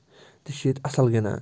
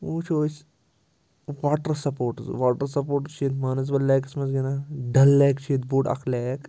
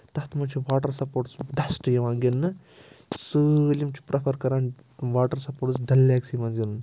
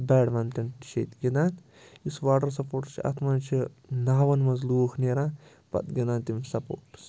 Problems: constant background noise